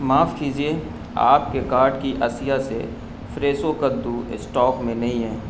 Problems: constant background noise